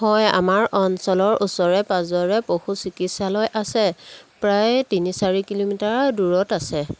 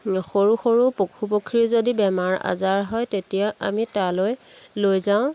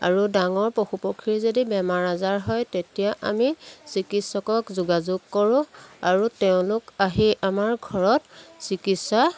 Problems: background sounds at intervals